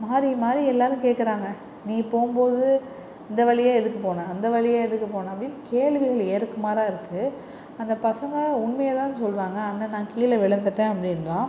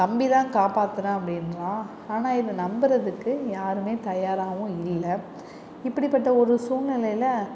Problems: none marked